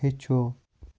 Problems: constant background noise, low volume